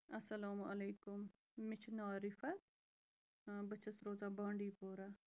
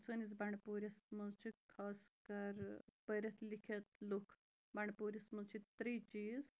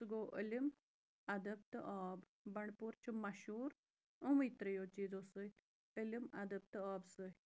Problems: background sounds at intervals